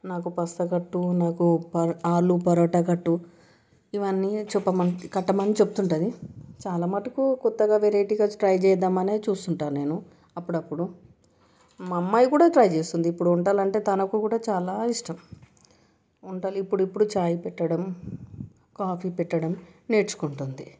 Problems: background sounds at intervals